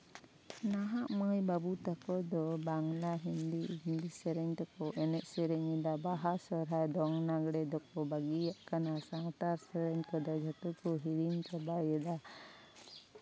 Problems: constant background noise, background conversations at intervals, low volume